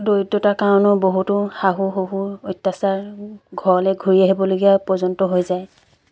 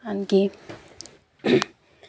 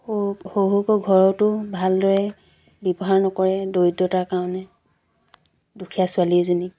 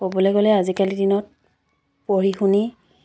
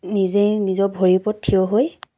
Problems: background sounds at intervals